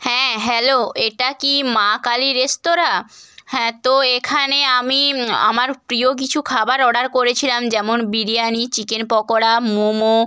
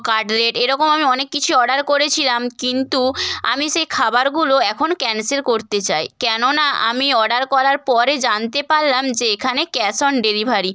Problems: background sounds at intervals